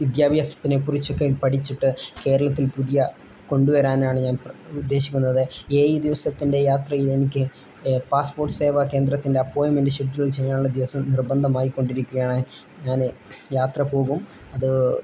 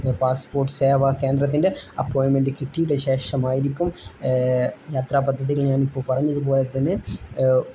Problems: none marked